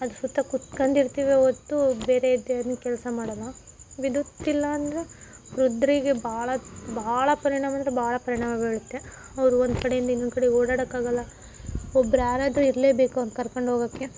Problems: background sounds at intervals